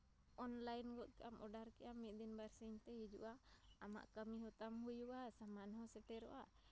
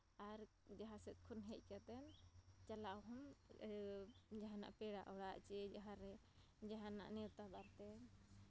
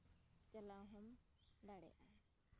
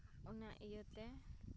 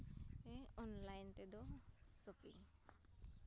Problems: low volume